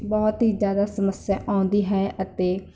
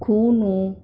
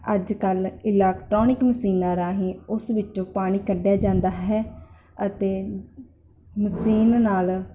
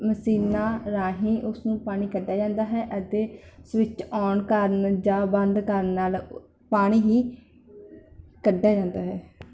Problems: none marked